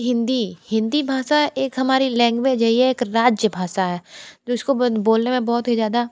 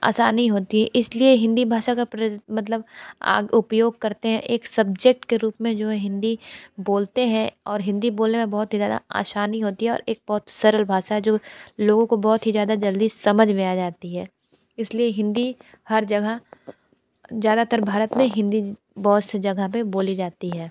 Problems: none marked